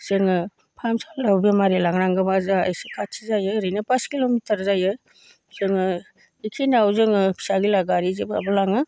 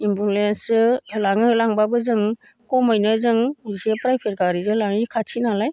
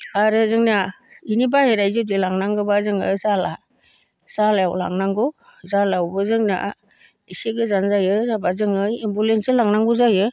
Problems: none marked